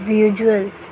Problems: none marked